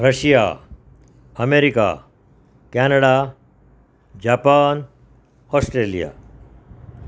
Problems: none marked